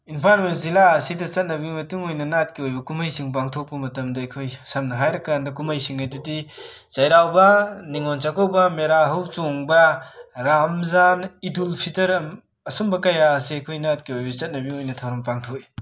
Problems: background sounds at intervals